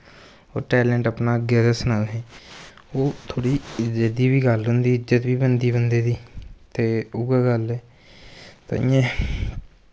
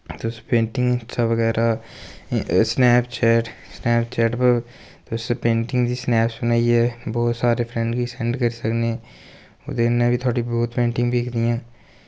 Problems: constant background noise